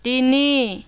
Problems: none marked